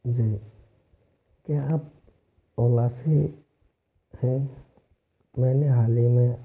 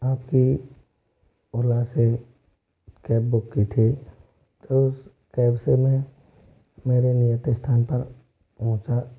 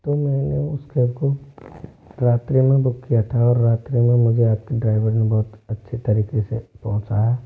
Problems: low volume